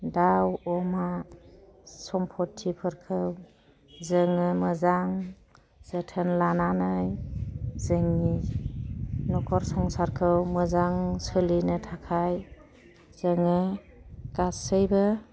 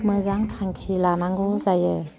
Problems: constant background noise